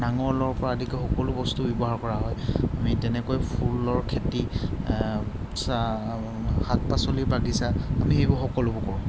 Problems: background sounds at intervals